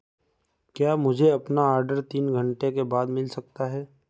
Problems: none marked